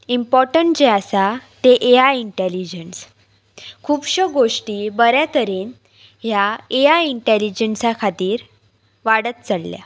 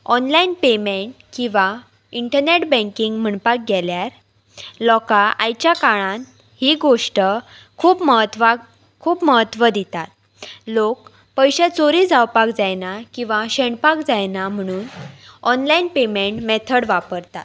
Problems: constant background noise